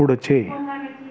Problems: continuous background conversations